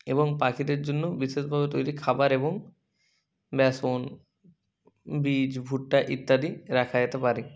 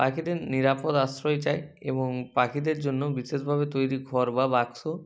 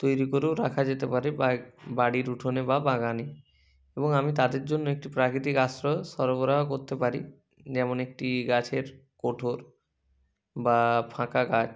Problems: none marked